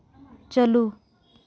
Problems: none marked